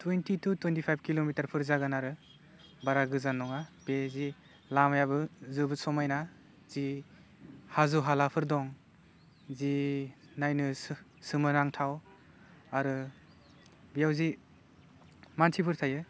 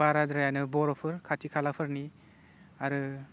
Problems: low volume